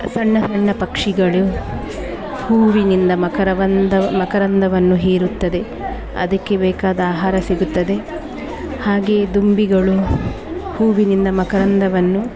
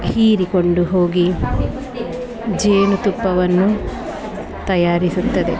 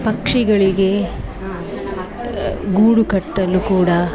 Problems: none marked